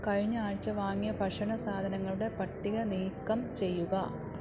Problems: low volume